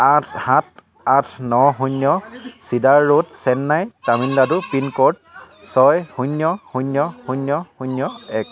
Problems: none marked